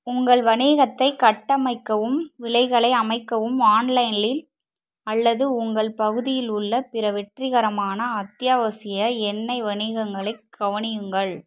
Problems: none marked